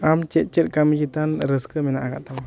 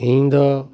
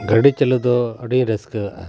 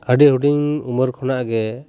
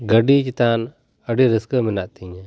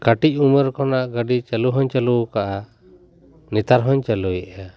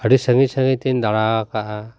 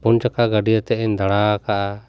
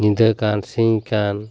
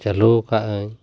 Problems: none marked